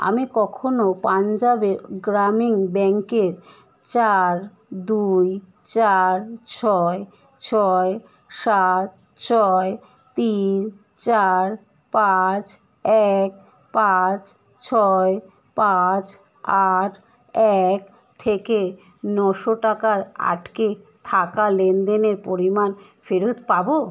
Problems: constant background noise